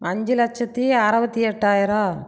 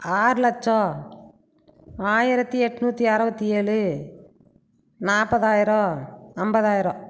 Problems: none marked